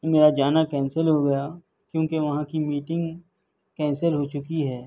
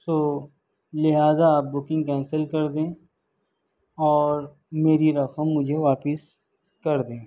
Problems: none marked